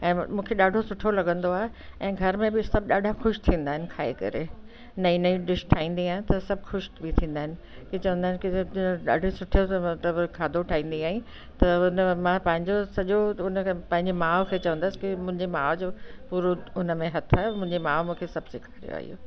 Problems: constant background noise